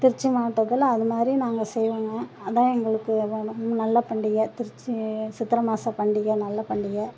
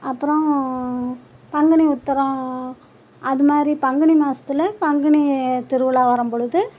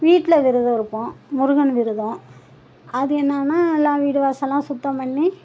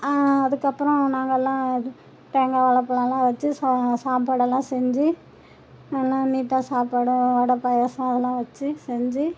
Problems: none marked